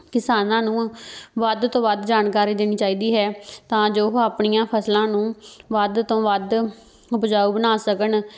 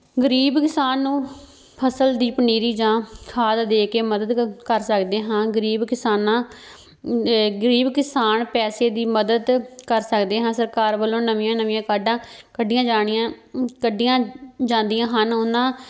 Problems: background sounds at intervals